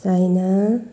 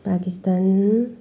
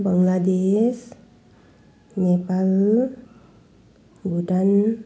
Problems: background sounds at intervals